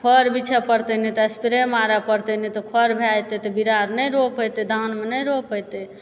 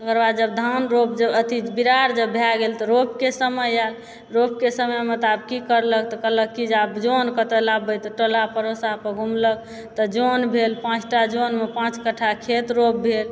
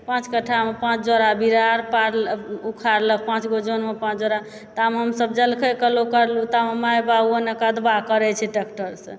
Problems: none marked